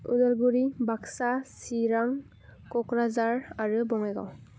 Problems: low volume